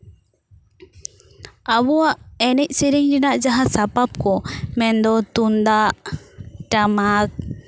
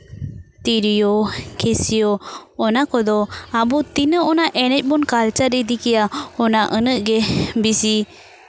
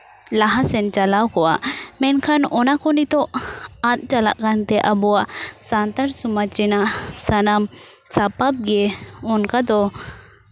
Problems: background sounds at intervals